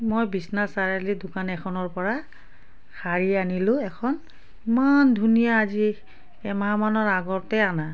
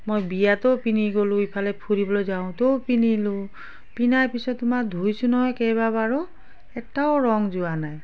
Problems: background sounds at intervals